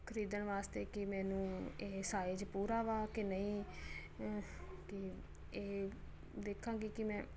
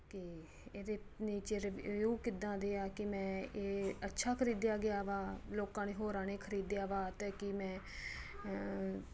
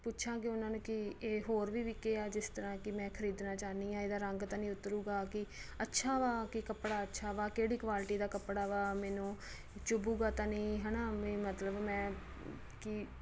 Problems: none marked